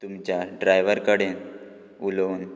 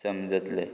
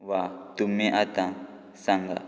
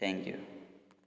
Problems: background sounds at intervals